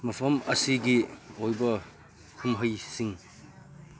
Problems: low volume